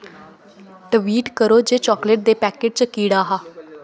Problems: constant background noise